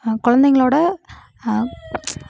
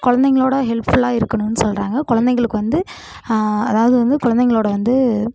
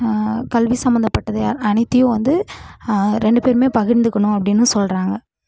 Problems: background conversations at intervals